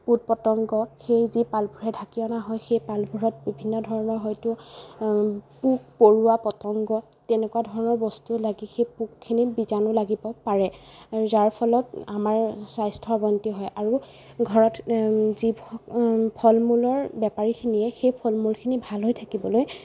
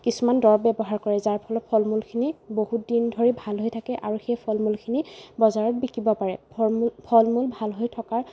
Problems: none marked